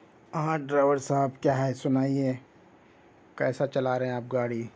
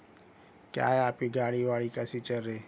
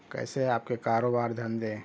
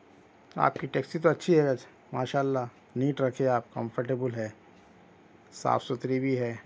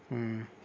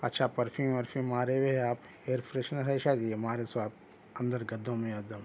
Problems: background sounds at intervals